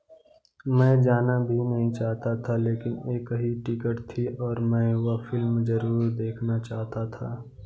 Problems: none marked